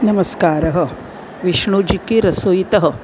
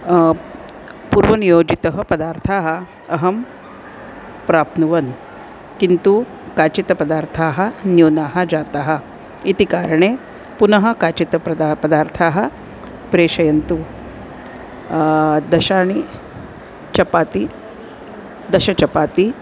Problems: constant background noise